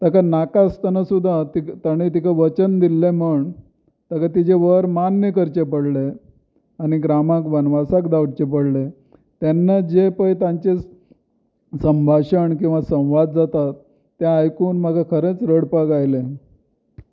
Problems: none marked